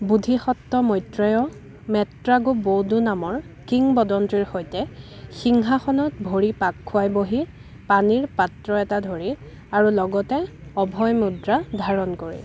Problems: constant background noise, background conversations at intervals